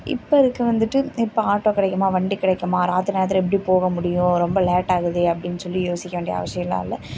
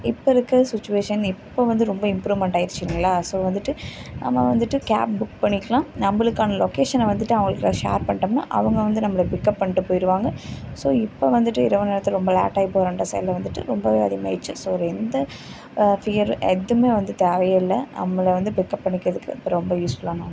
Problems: background sounds at intervals